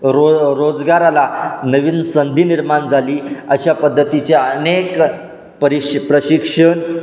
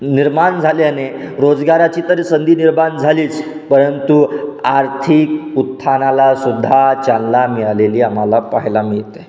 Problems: constant background noise, echo